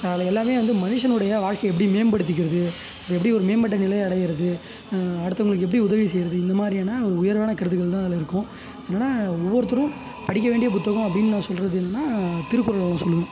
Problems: constant background noise